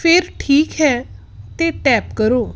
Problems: background sounds at intervals